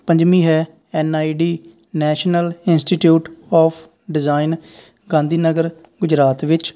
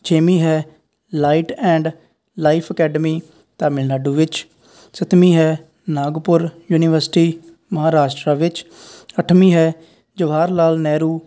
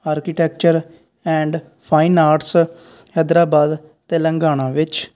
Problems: none marked